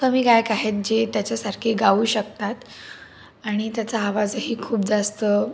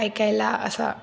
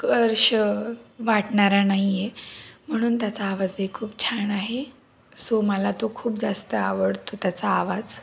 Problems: none marked